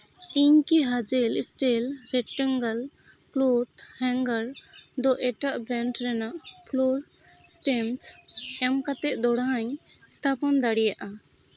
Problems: none marked